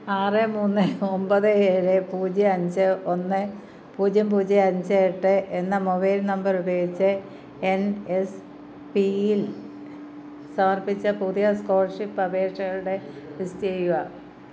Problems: background conversations at intervals